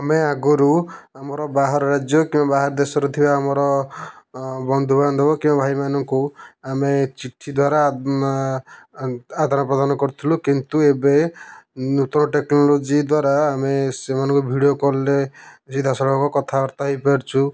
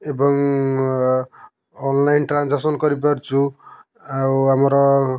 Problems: none marked